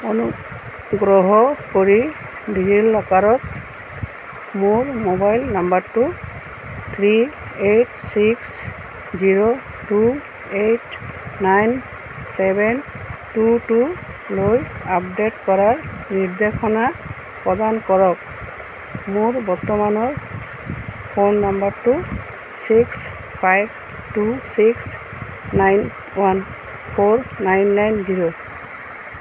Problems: constant background noise